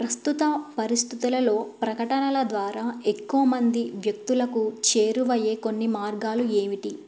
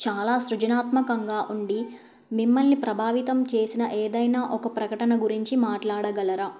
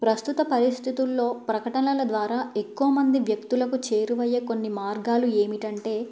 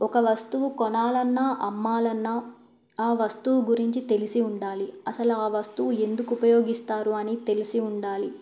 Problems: none marked